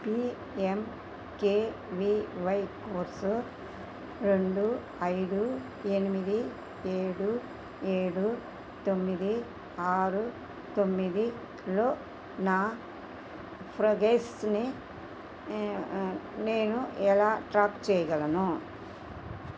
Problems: constant background noise